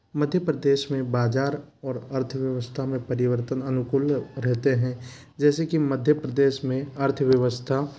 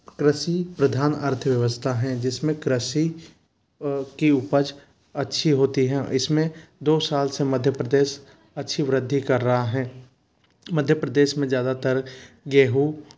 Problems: constant background noise